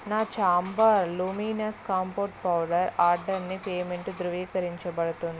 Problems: background sounds at intervals